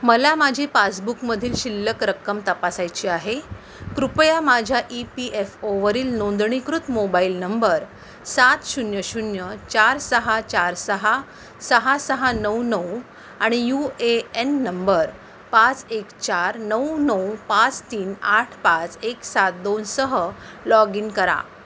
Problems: constant background noise